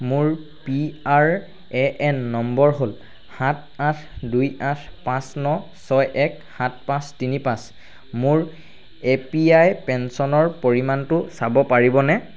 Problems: constant background noise